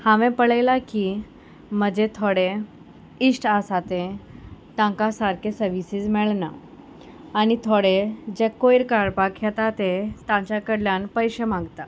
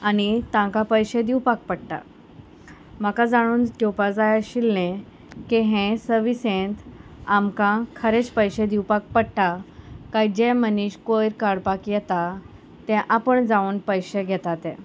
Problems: none marked